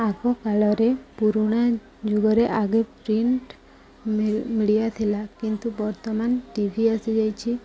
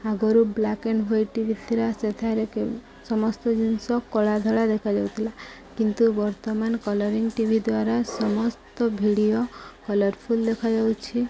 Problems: background sounds at intervals